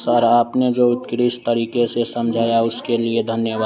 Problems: constant background noise